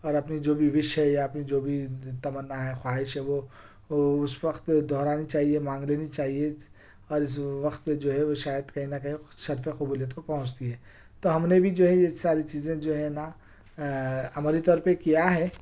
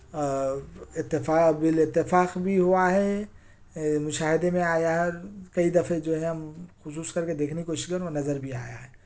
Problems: none marked